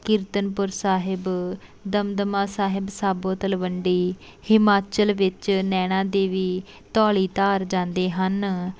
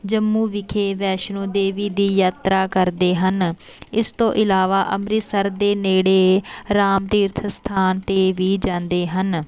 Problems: none marked